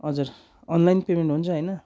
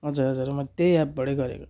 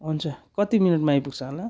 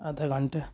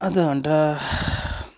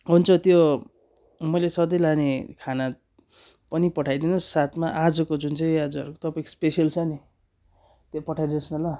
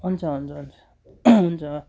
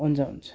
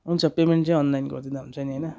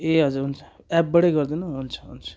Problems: none marked